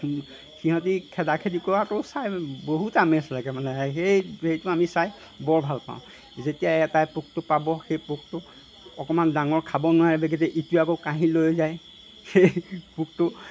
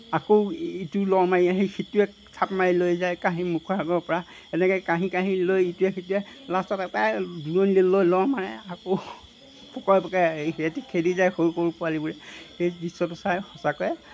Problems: background sounds at intervals